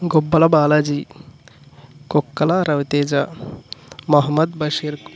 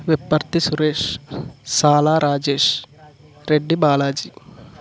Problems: none marked